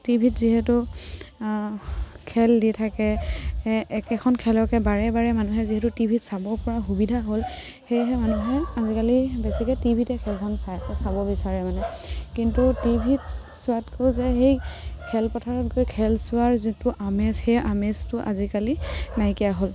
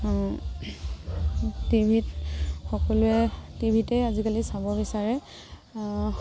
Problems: none marked